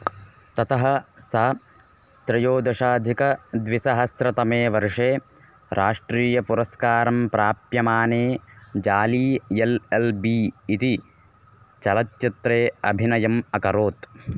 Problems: constant background noise